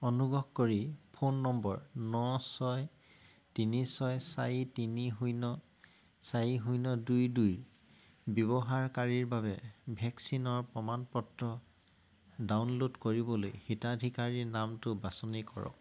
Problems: background sounds at intervals